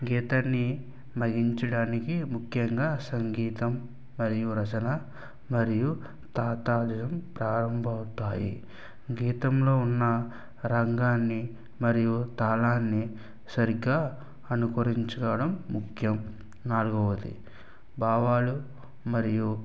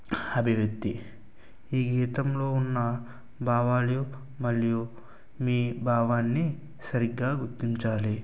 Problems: low volume